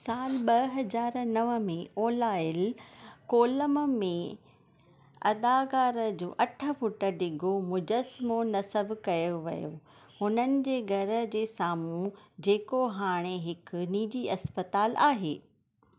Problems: none marked